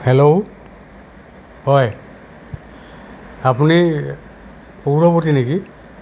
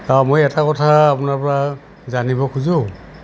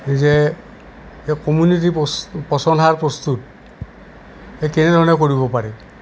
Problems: none marked